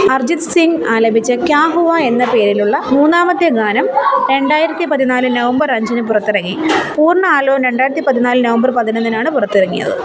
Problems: continuous background conversations